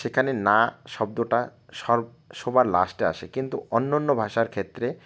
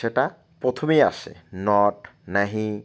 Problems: constant background noise